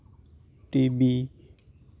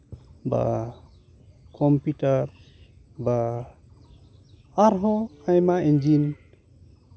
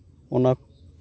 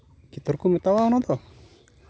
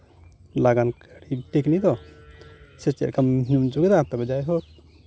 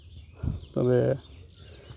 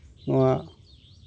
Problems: background sounds at intervals